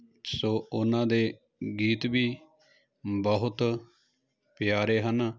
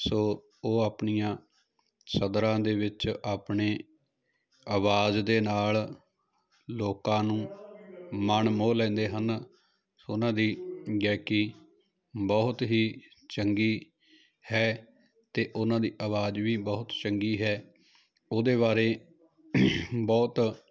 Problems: continuous background conversations